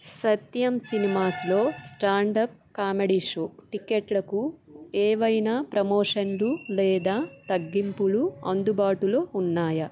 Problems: constant background noise